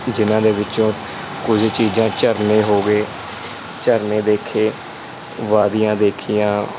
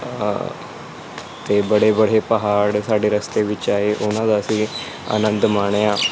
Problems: constant background noise